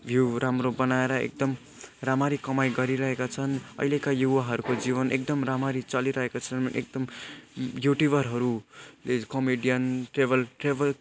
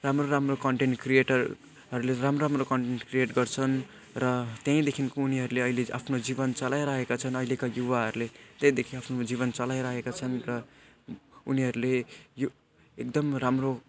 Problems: none marked